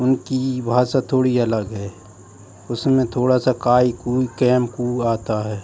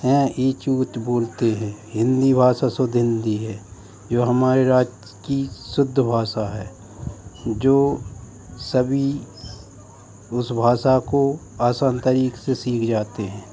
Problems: none marked